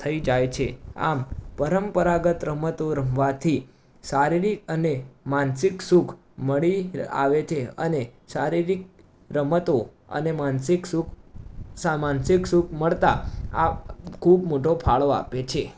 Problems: background sounds at intervals